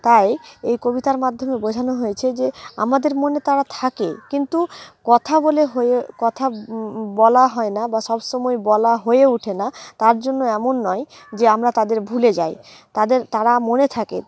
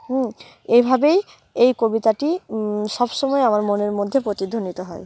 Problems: none marked